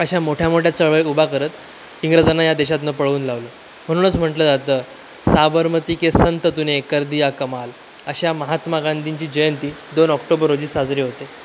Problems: constant background noise, continuous background conversations